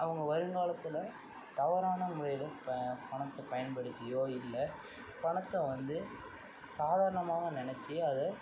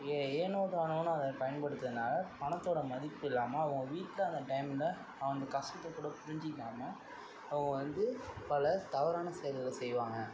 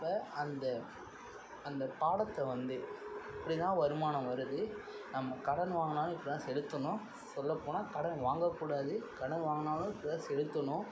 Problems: constant background noise, low volume